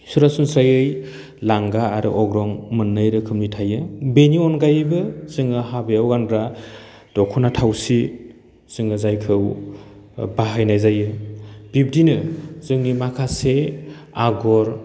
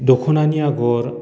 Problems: none marked